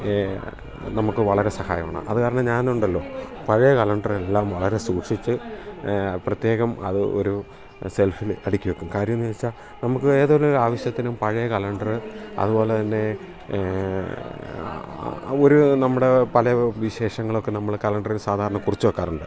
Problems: none marked